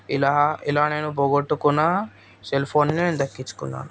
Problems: constant background noise